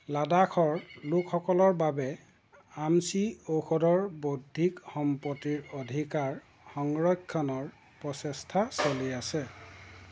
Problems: constant background noise